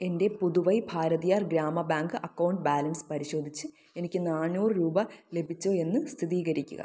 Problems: low volume